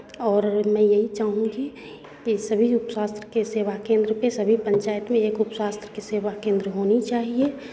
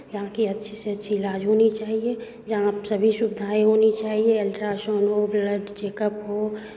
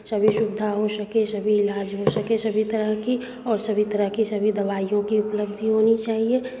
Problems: constant background noise, background conversations at intervals